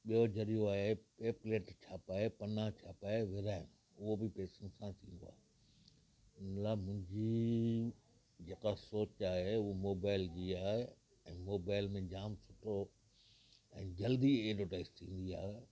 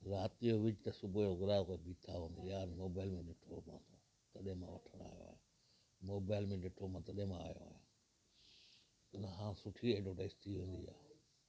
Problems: constant background noise